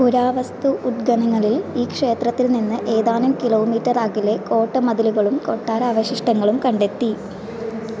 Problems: constant background noise